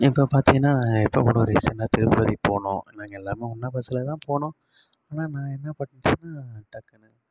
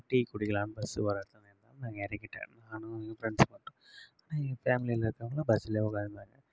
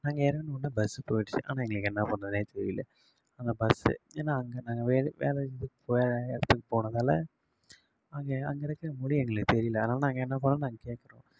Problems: none marked